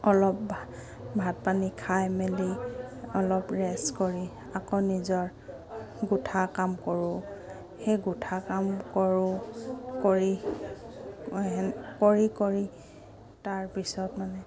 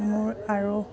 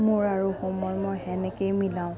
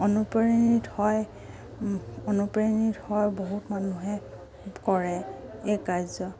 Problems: constant background noise